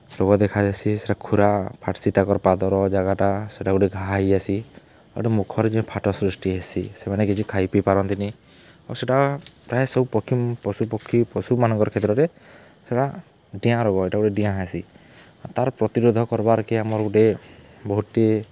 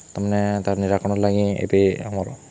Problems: none marked